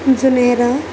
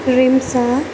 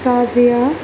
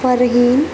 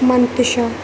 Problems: constant background noise